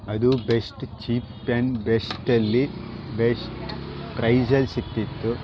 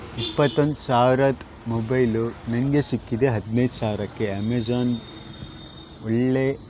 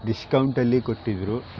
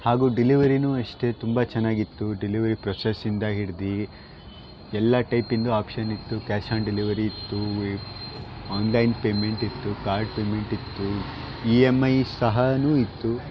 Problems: constant background noise